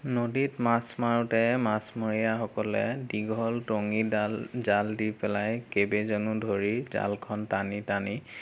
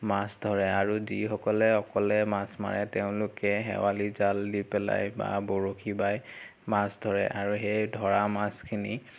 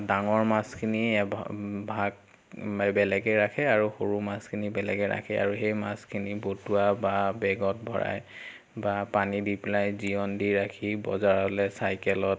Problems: constant background noise